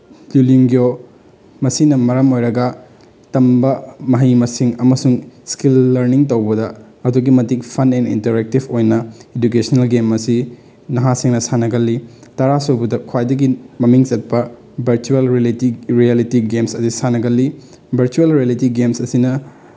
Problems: none marked